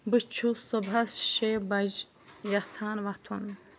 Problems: constant background noise